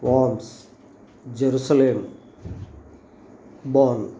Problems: constant background noise